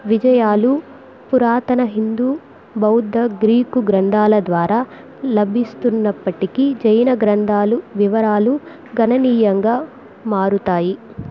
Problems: background sounds at intervals